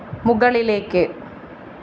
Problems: constant background noise